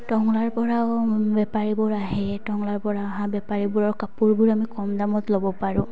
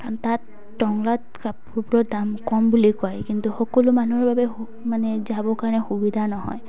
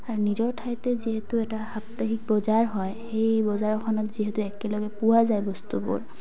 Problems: background sounds at intervals, background conversations at intervals